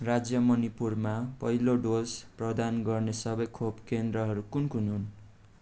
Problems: none marked